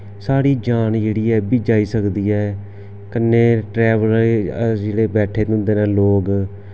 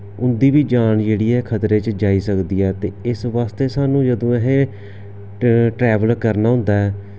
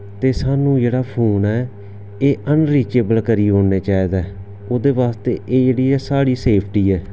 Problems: background sounds at intervals